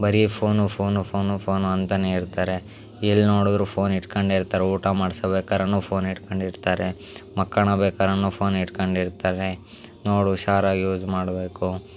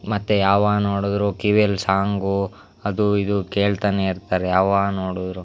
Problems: background sounds at intervals